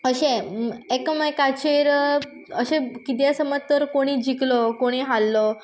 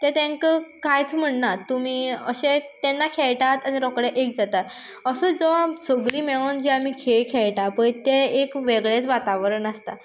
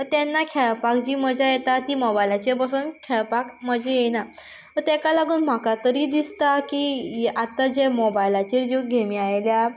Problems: background sounds at intervals